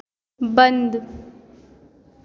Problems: constant background noise, echo